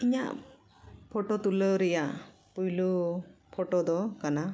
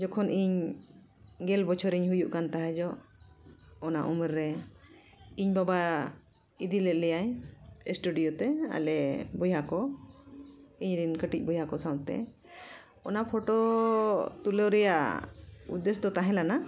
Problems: echo